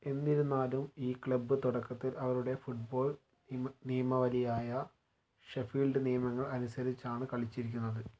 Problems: low volume